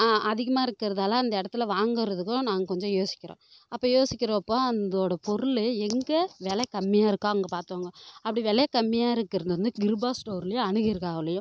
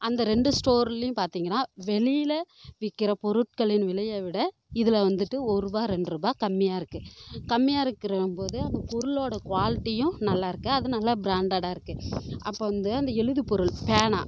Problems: none marked